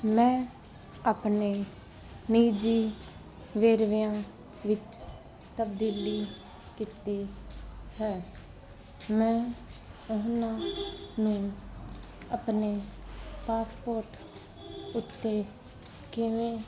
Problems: none marked